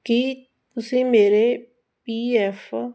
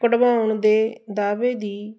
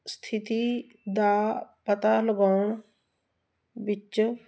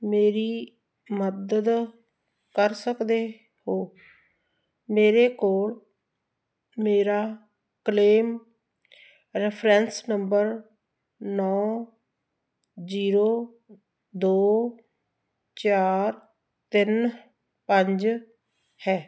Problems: constant background noise